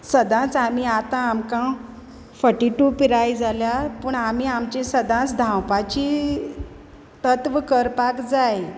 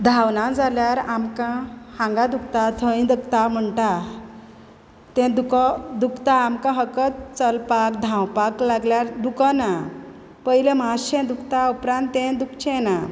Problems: none marked